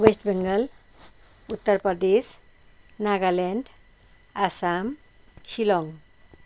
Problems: none marked